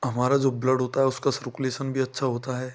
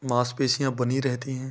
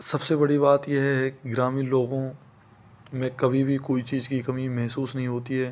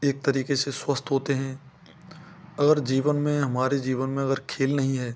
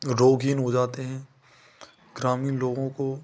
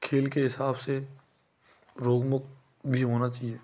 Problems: none marked